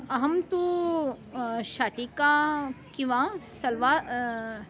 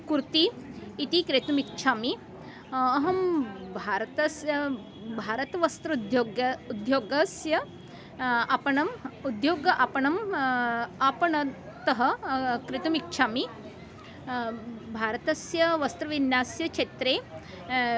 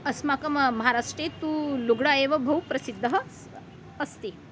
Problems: background conversations at intervals